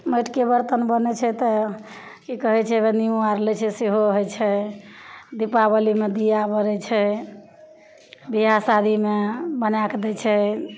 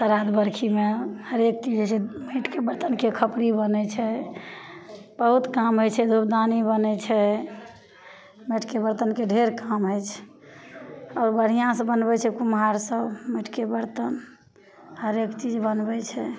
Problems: none marked